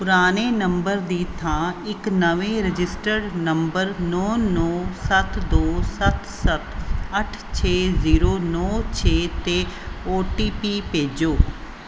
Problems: background sounds at intervals